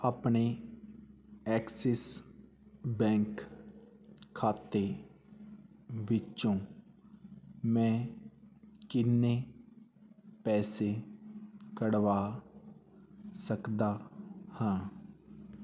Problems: background sounds at intervals